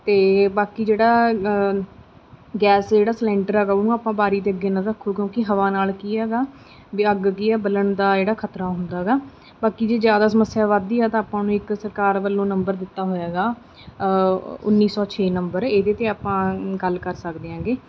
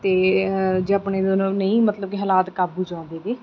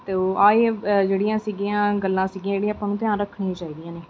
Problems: background sounds at intervals